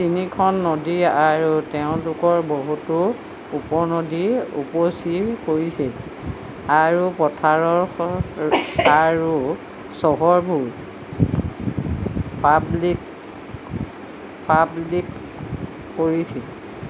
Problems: constant background noise